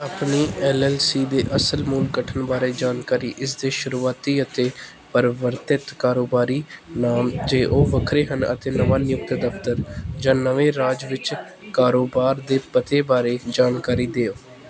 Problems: background conversations at intervals